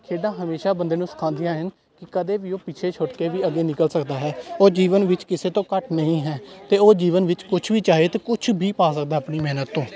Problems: none marked